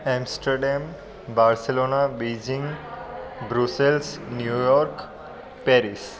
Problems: constant background noise